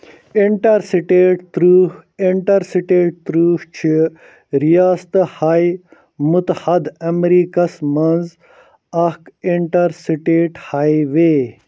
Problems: none marked